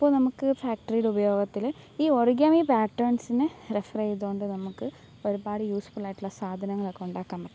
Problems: none marked